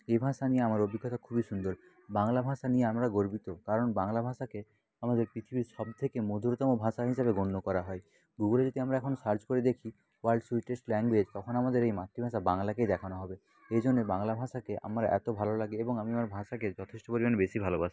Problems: constant background noise, background conversations at intervals